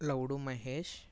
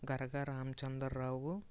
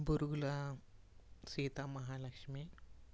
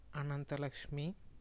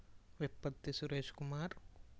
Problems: low volume